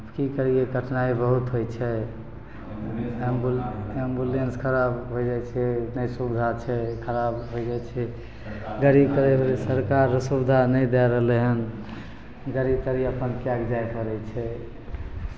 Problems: background conversations at intervals